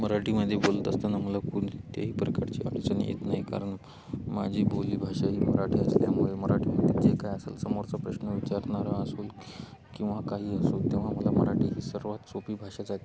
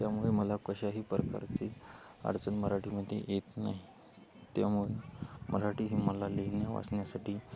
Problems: none marked